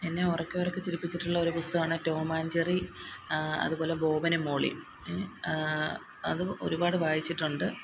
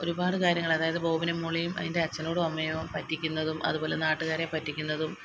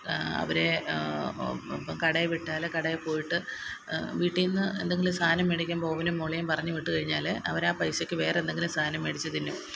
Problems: constant background noise